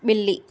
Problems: none marked